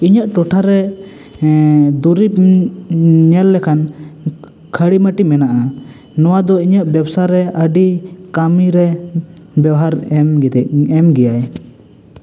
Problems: constant background noise, echo